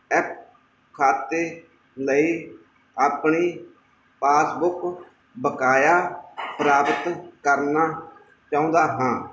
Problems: none marked